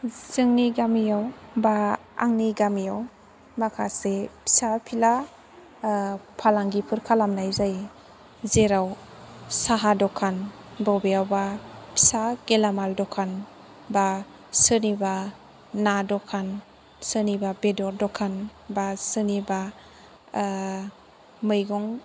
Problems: none marked